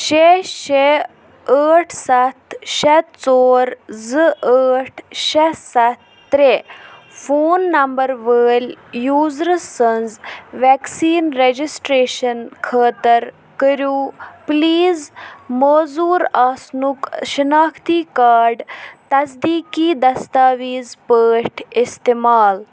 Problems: constant background noise